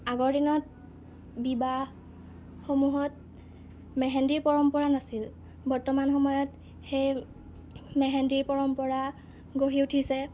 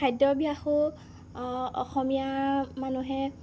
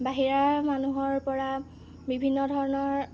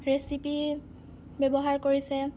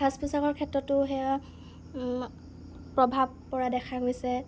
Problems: none marked